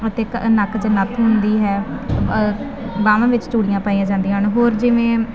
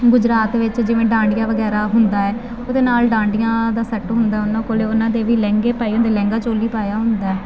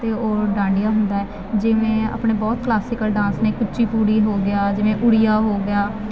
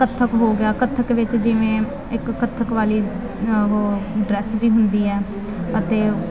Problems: constant background noise